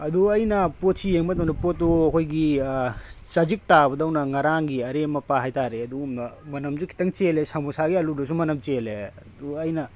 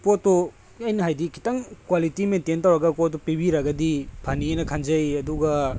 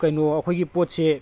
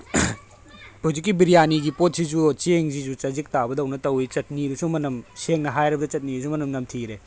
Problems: background sounds at intervals, background conversations at intervals